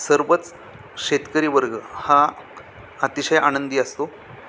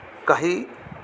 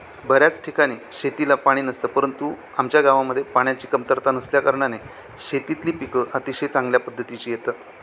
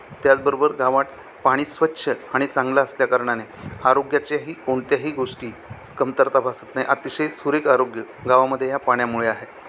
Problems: constant background noise, continuous background conversations